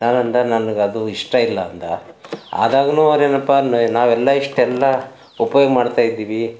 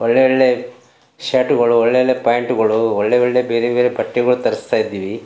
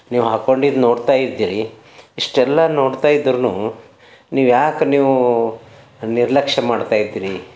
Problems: background sounds at intervals